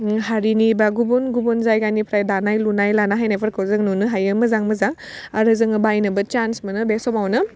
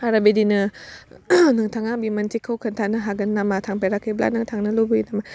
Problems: none marked